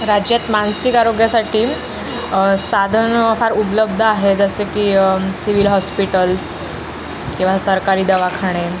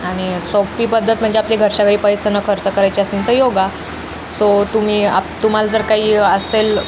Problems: constant background noise, background conversations at intervals